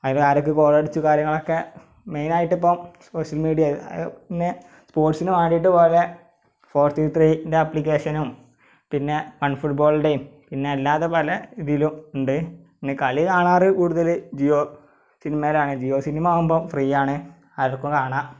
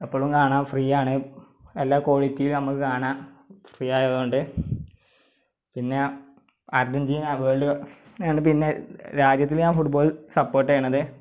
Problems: background sounds at intervals